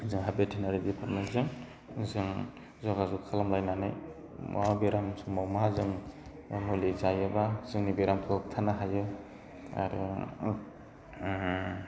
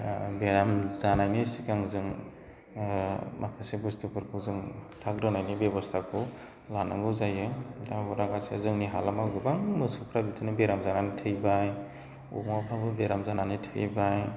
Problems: constant background noise